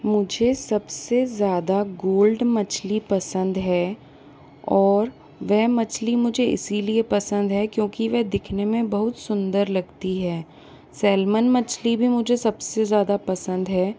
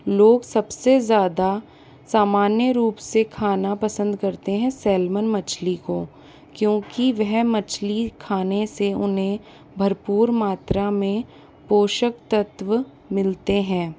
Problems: constant background noise